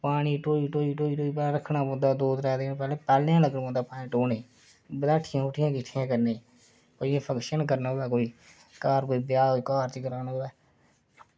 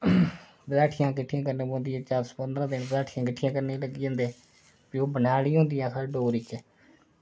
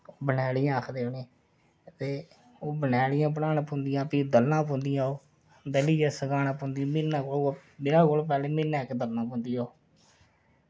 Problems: low volume